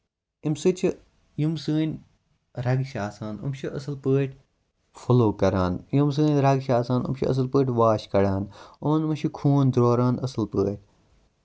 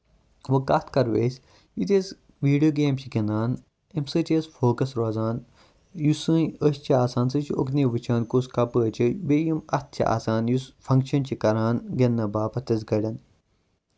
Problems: constant background noise